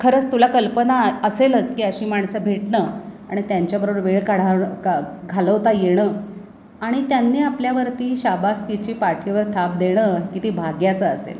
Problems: constant background noise, background conversations at intervals